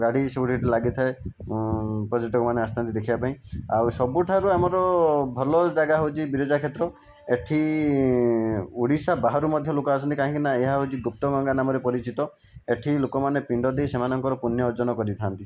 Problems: background sounds at intervals